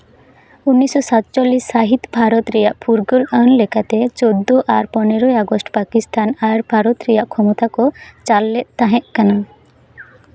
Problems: none marked